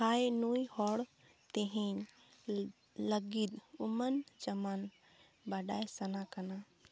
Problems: none marked